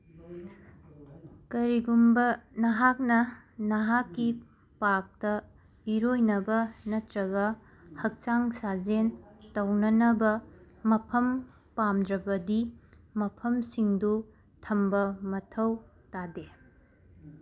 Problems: none marked